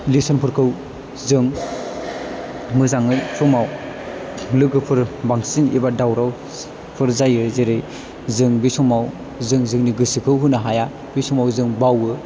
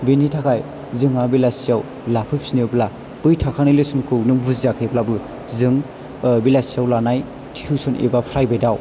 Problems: low volume